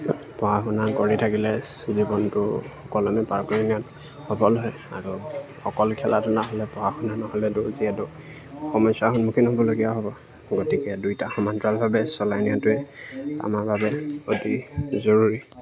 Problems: background sounds at intervals